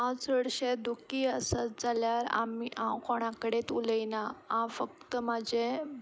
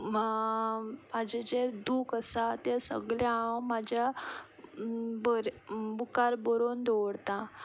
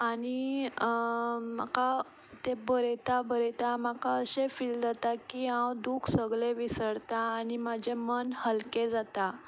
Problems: none marked